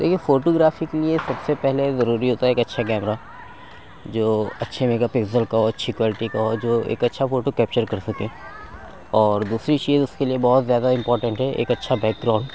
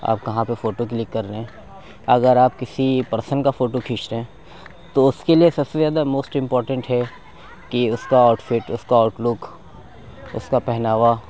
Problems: background conversations at intervals